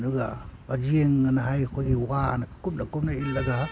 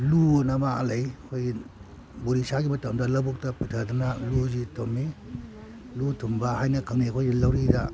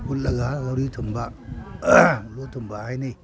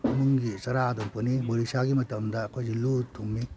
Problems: none marked